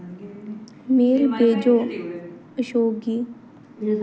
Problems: constant background noise